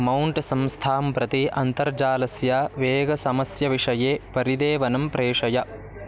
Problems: constant background noise, continuous background conversations